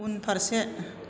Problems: constant background noise